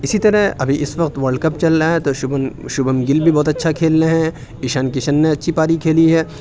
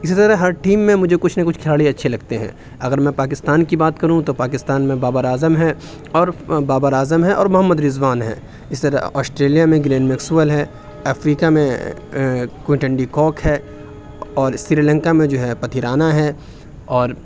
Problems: none marked